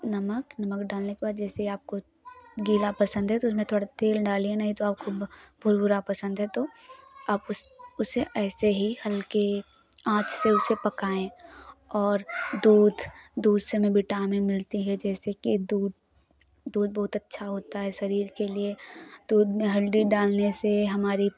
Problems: none marked